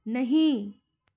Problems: background sounds at intervals